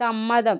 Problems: none marked